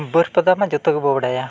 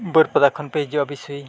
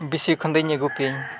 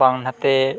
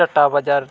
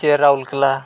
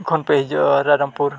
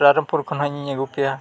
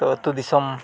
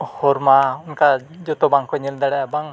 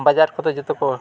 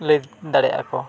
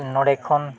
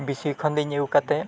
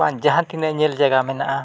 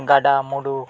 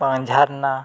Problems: constant background noise, background conversations at intervals